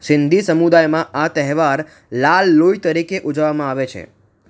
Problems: none marked